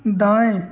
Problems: constant background noise